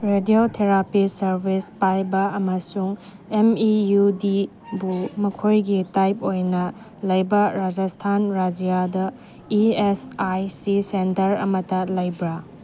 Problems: background sounds at intervals